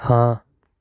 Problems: background conversations at intervals